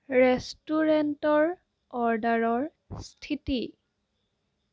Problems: constant background noise